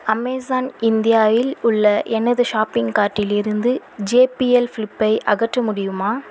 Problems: constant background noise